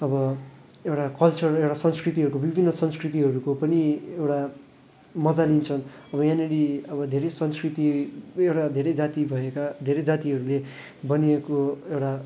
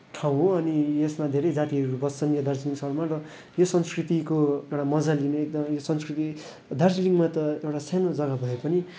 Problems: none marked